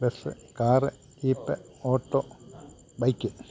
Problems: low volume